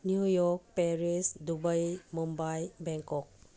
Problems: low volume